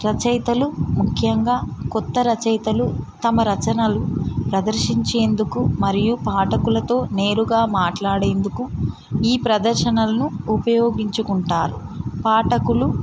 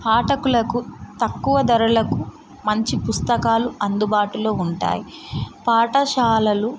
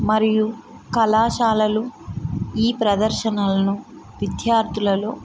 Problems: constant background noise